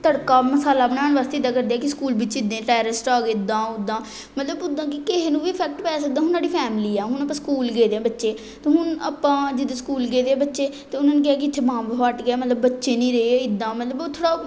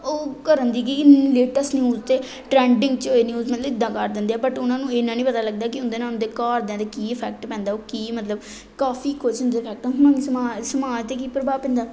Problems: background conversations at intervals